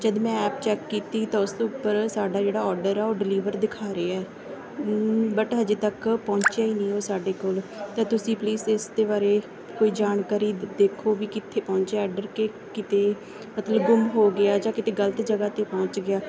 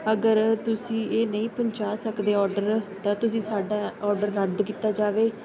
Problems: background sounds at intervals